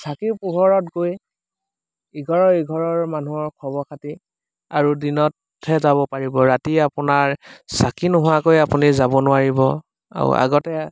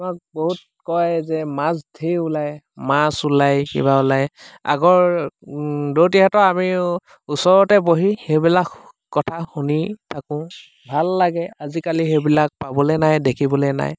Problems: constant background noise